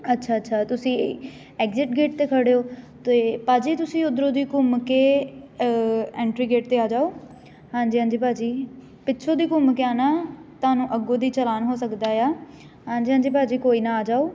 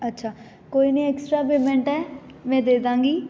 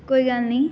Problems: none marked